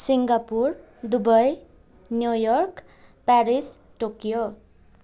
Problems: none marked